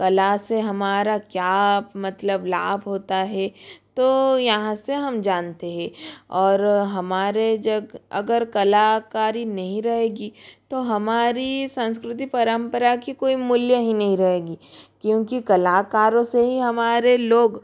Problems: constant background noise